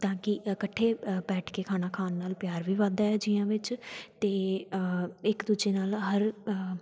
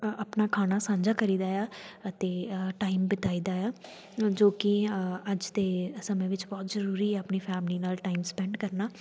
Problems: none marked